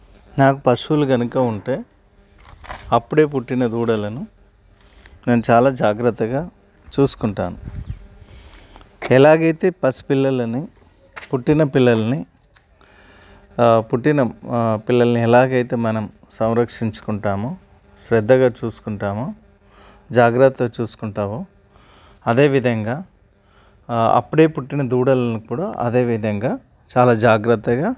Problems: none marked